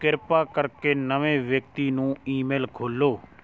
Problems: background conversations at intervals